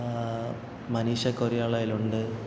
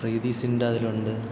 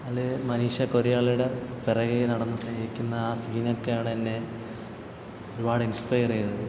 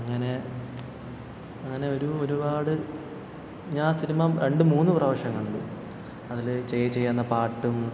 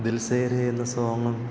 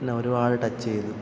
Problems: background sounds at intervals